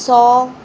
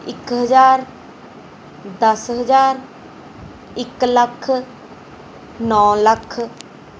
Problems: background sounds at intervals